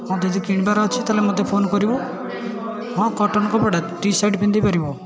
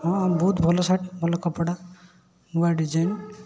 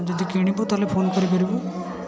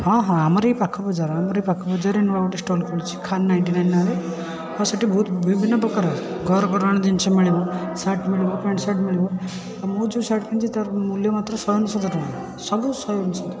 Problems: constant background noise, continuous background conversations